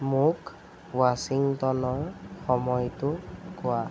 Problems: constant background noise